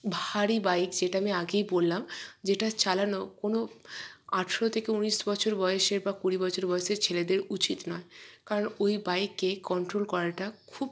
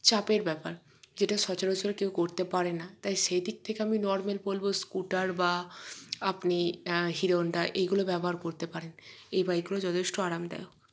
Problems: none marked